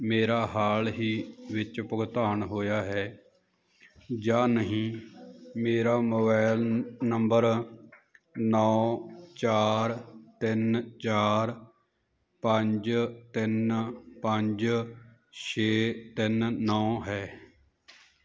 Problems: none marked